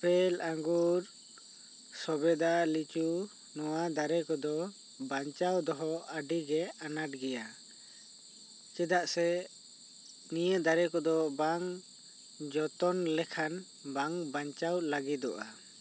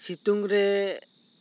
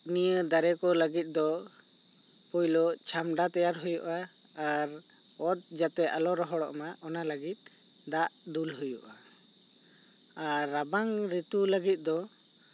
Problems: none marked